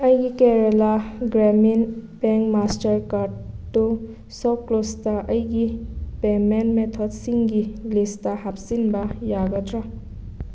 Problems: background sounds at intervals